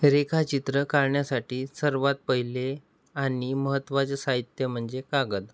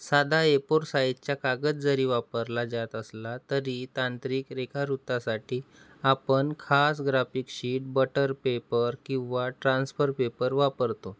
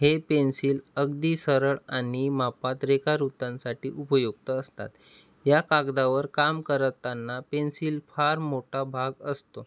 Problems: background sounds at intervals